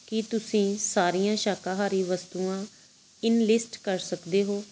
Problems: background sounds at intervals